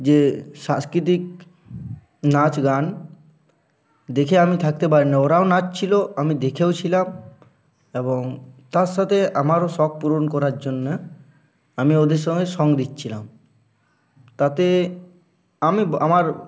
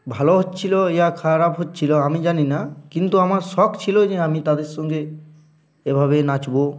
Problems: constant background noise